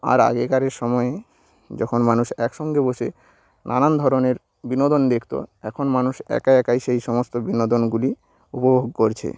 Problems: none marked